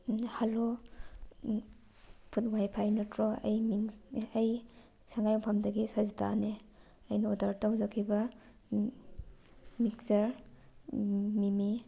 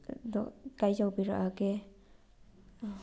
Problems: none marked